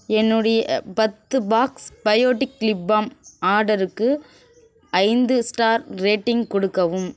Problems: constant background noise